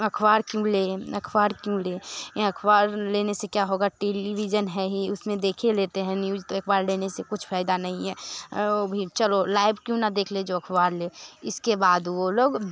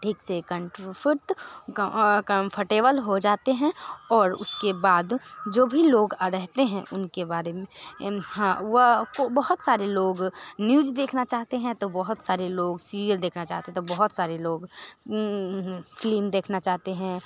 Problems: none marked